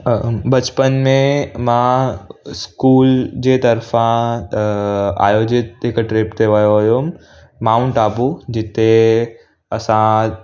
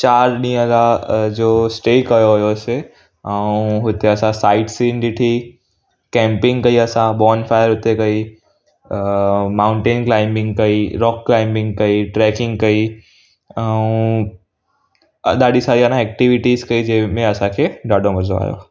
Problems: none marked